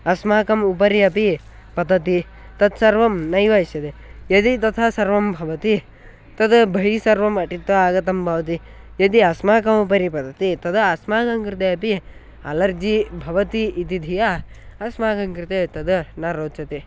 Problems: none marked